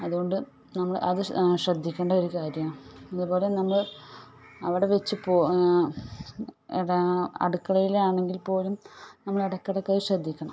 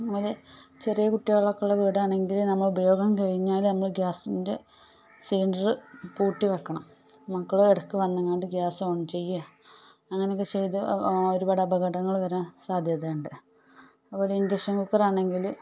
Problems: low volume